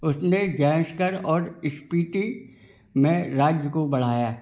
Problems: none marked